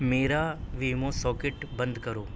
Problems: constant background noise